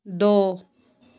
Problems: background sounds at intervals